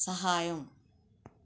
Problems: none marked